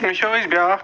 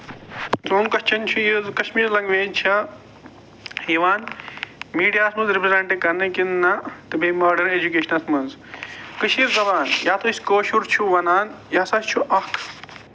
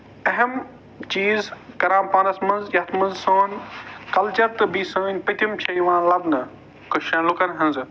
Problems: constant background noise